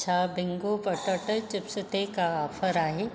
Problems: none marked